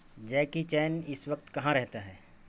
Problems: constant background noise